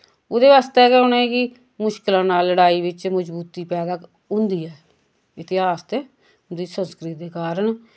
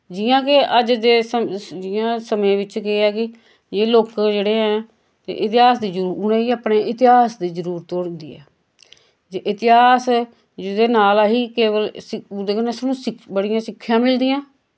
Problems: constant background noise